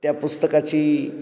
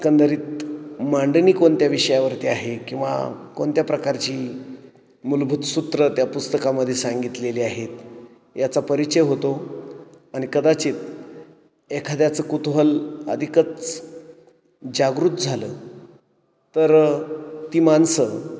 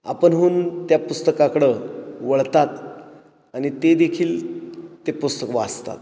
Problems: echo